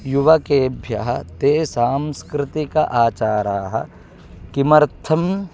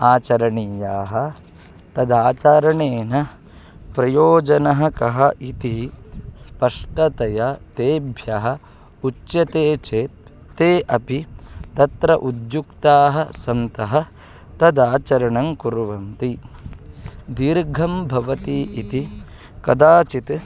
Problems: constant background noise